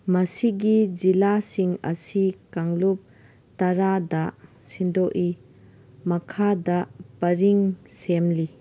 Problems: background sounds at intervals